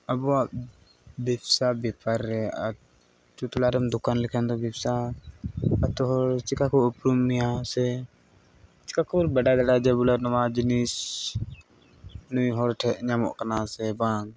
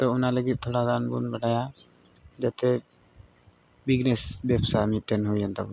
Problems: background sounds at intervals